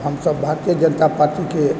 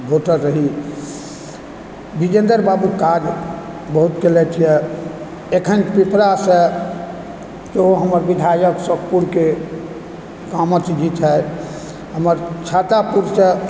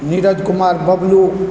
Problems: constant background noise